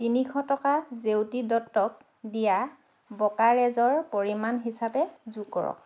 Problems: constant background noise